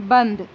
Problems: constant background noise